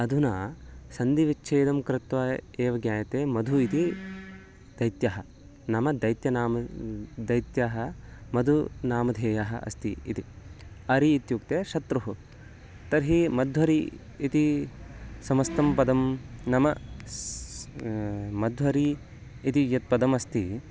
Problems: background sounds at intervals, background conversations at intervals